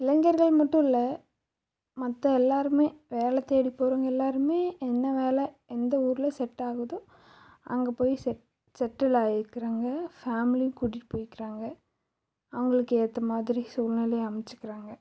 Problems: none marked